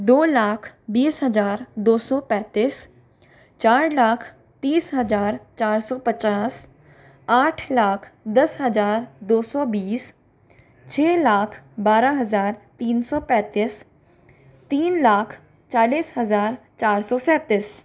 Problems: background conversations at intervals